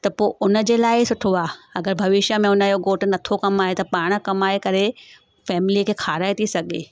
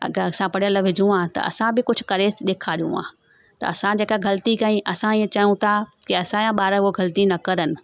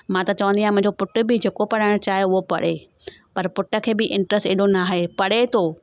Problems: background sounds at intervals